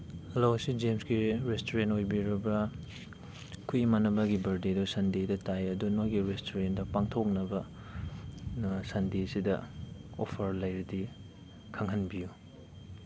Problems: background sounds at intervals